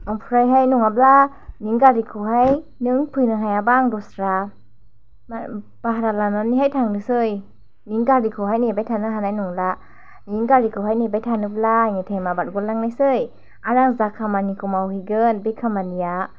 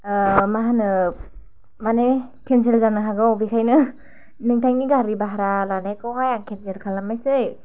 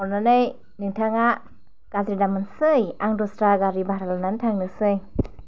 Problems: none marked